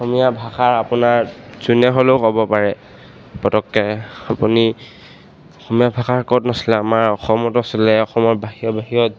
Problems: none marked